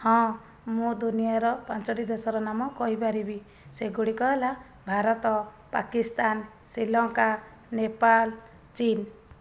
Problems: none marked